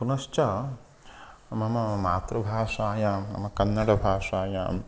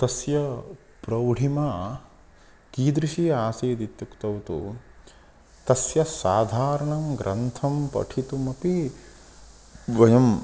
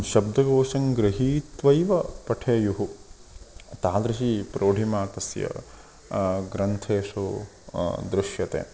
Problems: constant background noise